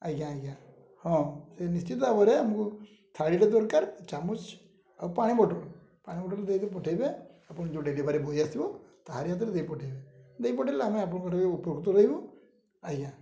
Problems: low volume